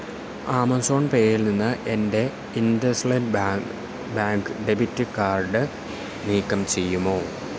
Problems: constant background noise